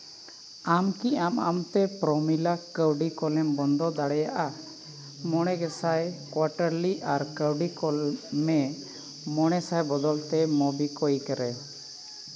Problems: constant background noise